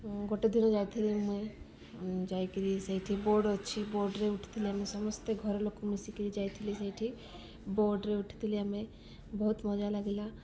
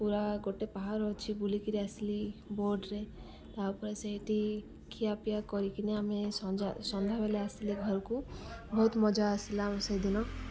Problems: none marked